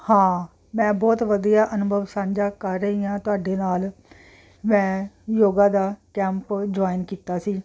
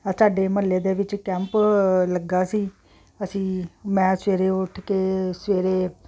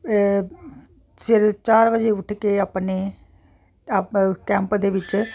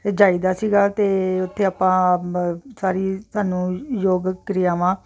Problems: none marked